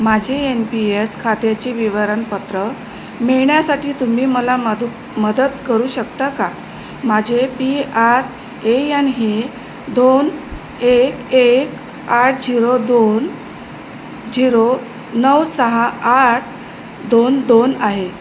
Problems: constant background noise